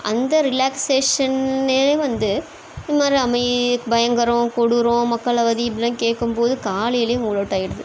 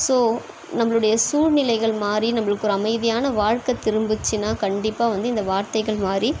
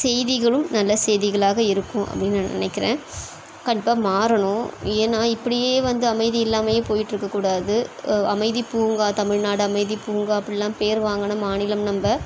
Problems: constant background noise